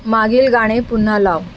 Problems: constant background noise